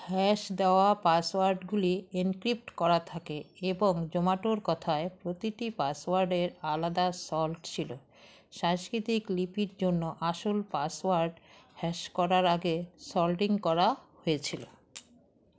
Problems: constant background noise